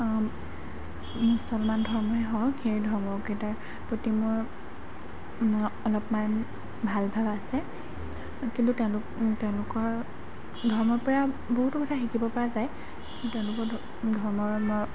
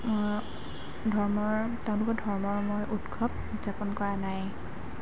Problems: background sounds at intervals